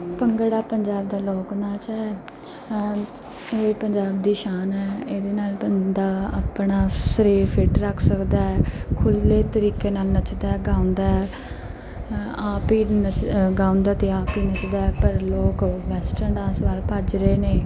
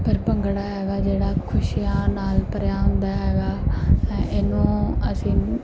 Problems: background sounds at intervals, background conversations at intervals